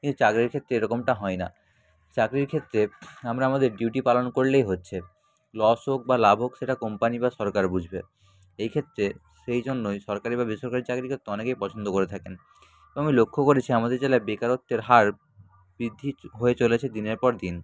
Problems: constant background noise, background conversations at intervals